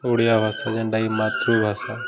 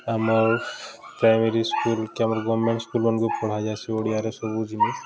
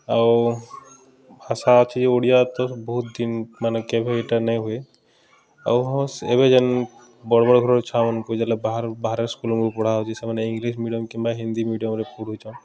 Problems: constant background noise